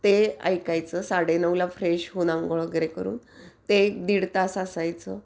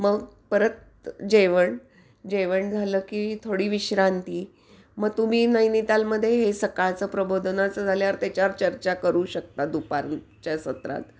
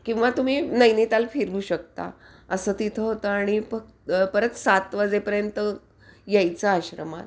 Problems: background sounds at intervals